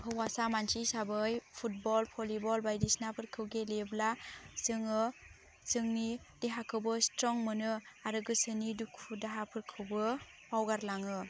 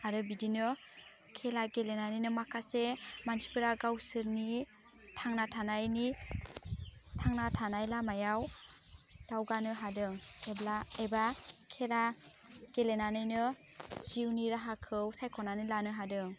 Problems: constant background noise